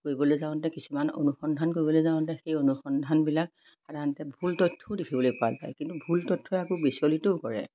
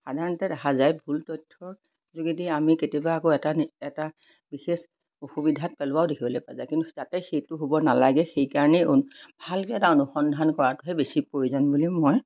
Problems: none marked